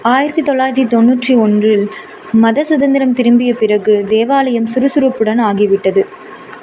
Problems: constant background noise